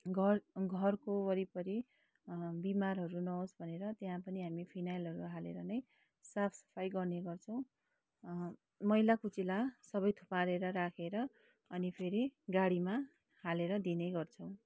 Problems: low volume